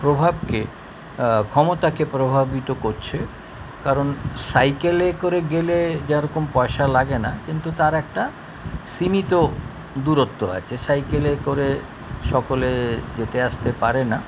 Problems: constant background noise